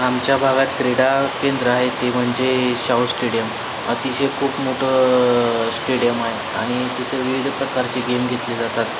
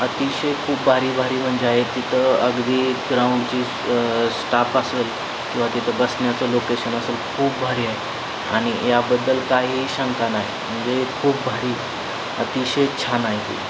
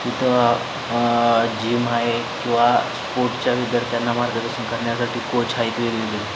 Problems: constant background noise